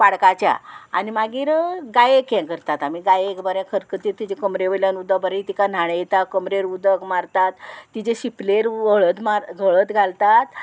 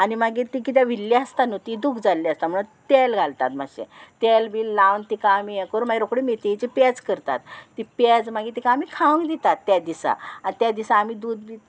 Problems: constant background noise